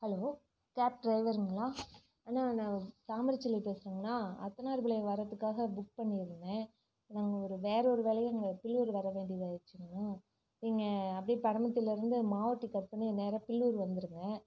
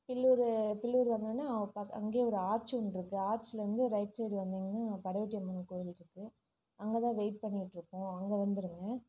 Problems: low volume